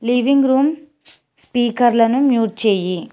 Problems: none marked